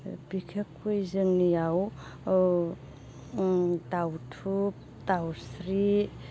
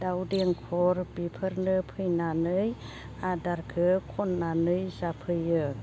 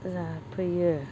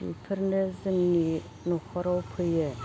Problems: constant background noise